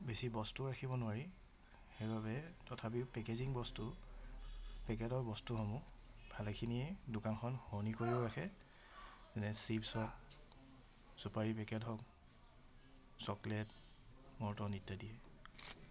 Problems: none marked